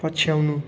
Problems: constant background noise